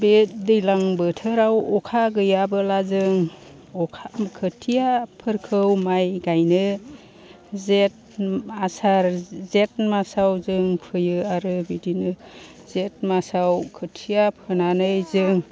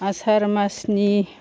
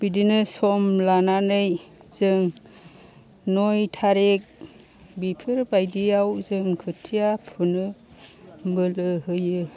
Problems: constant background noise